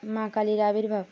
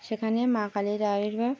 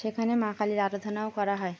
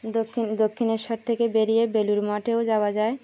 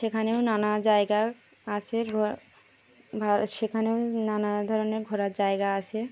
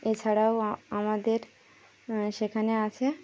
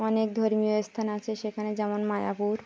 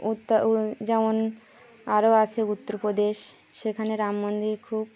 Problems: none marked